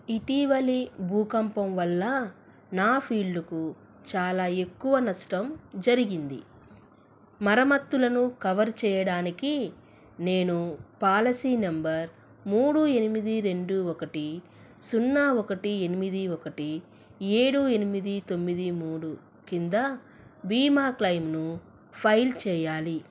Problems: none marked